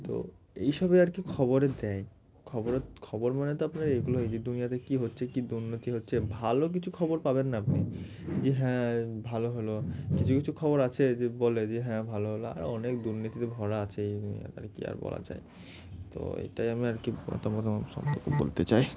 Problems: constant background noise